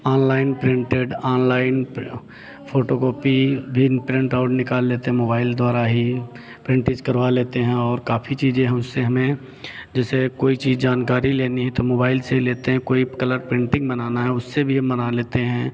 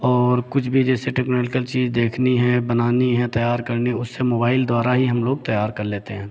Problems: none marked